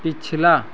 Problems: constant background noise